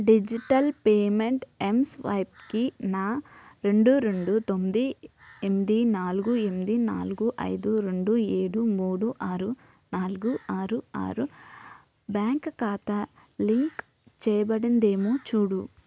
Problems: background sounds at intervals